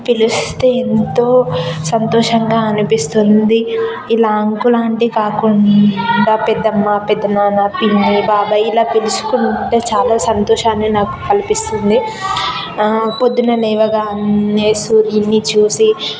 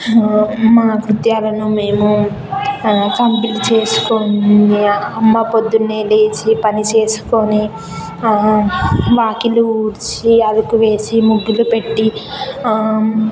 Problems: none marked